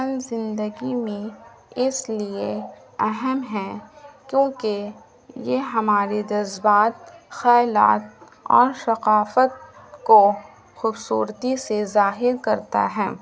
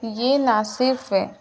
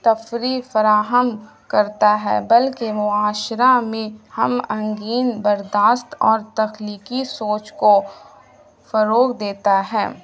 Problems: constant background noise, low volume